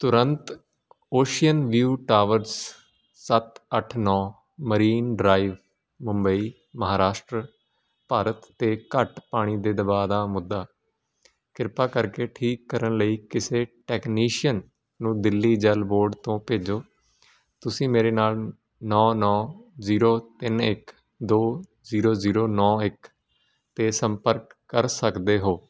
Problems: constant background noise